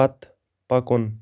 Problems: background sounds at intervals